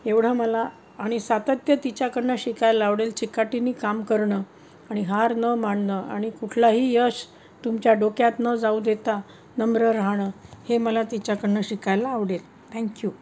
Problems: constant background noise